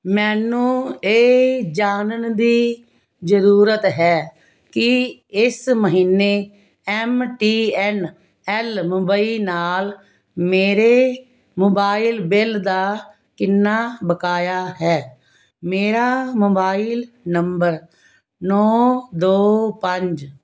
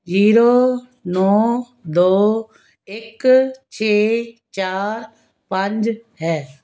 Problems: none marked